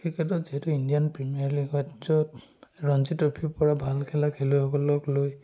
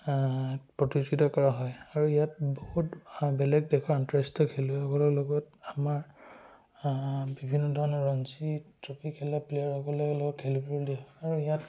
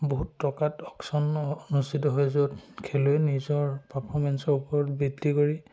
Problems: none marked